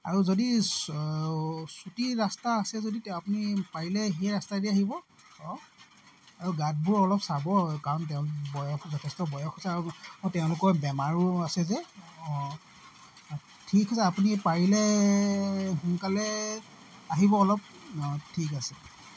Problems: constant background noise